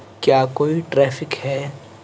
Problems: constant background noise